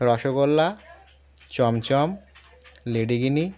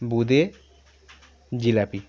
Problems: constant background noise, background conversations at intervals